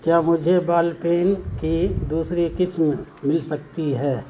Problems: constant background noise